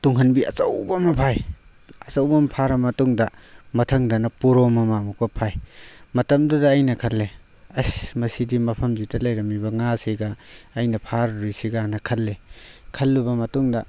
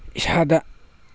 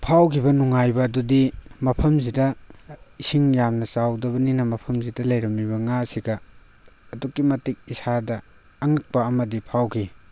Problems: none marked